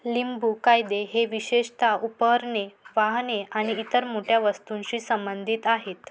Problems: background sounds at intervals